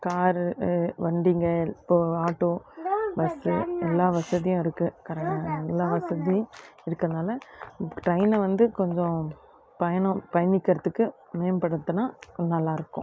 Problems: constant background noise, background conversations at intervals